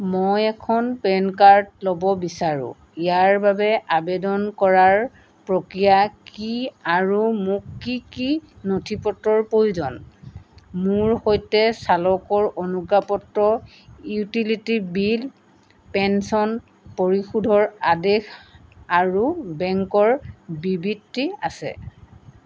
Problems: none marked